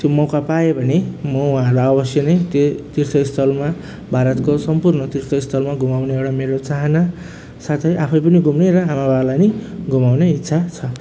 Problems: none marked